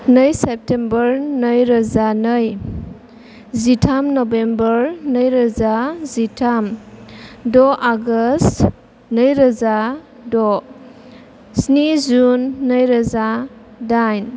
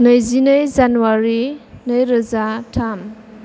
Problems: none marked